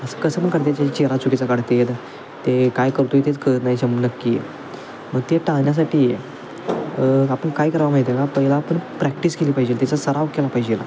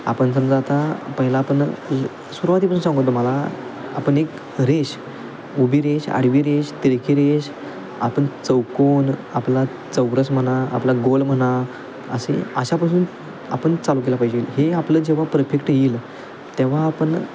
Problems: constant background noise, continuous background conversations